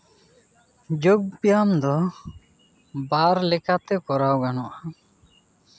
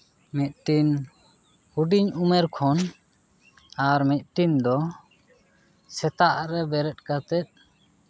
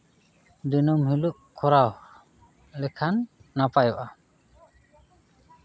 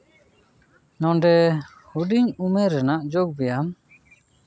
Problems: none marked